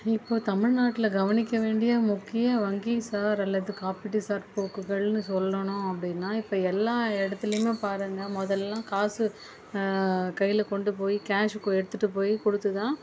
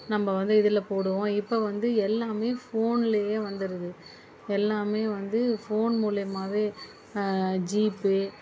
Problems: none marked